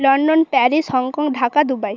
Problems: none marked